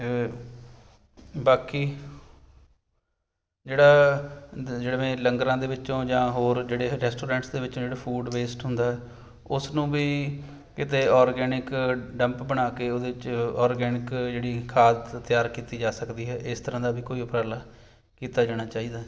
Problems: background sounds at intervals